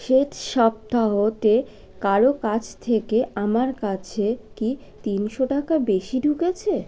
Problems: none marked